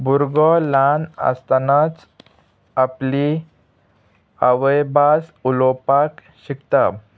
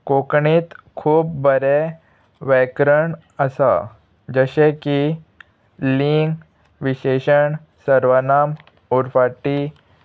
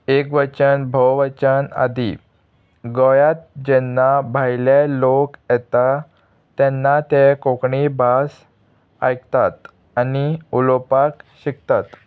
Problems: constant background noise, background conversations at intervals